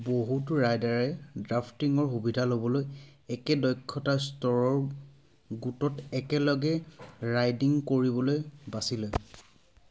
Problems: background sounds at intervals